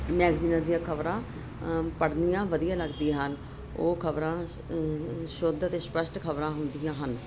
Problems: constant background noise